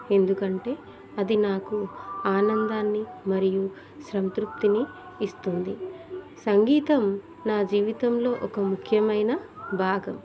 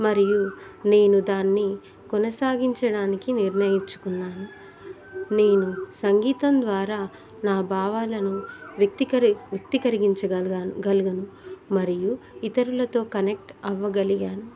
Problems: continuous background conversations